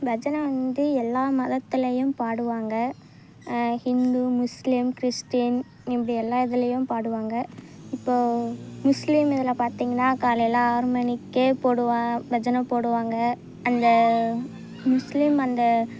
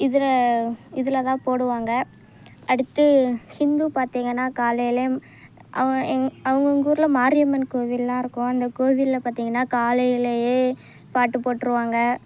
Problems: none marked